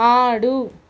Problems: none marked